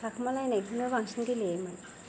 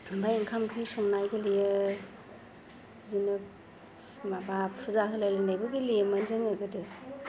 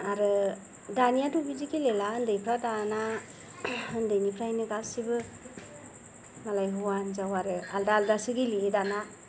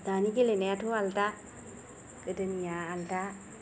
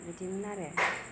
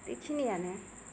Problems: low volume